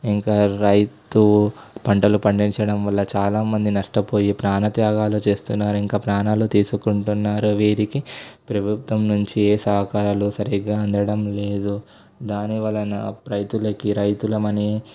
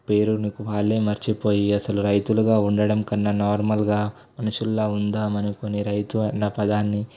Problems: constant background noise